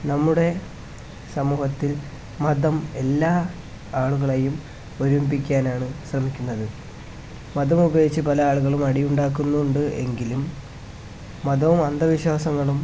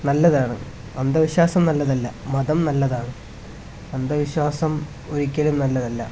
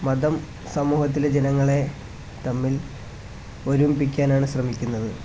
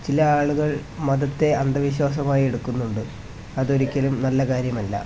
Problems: constant background noise